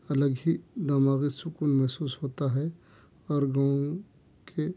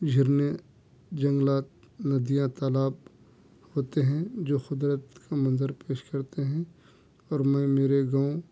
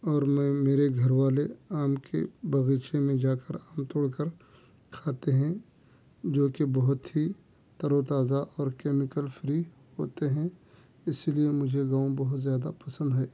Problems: none marked